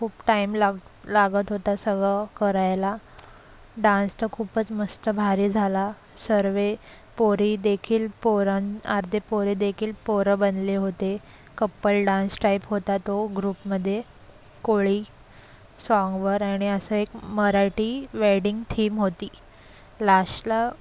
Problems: constant background noise